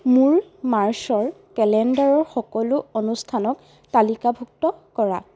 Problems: constant background noise